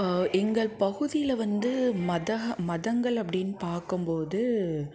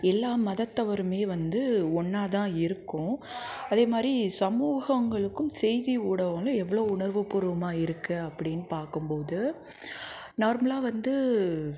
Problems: background sounds at intervals, background conversations at intervals